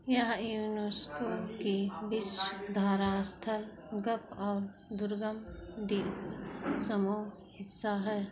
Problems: constant background noise, echo